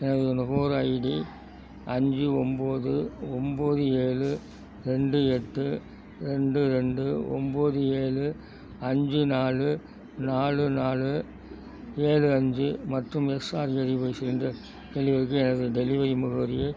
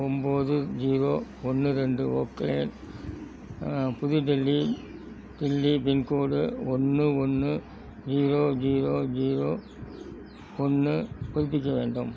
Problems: constant background noise